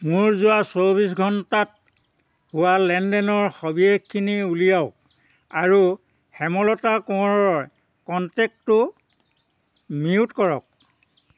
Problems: constant background noise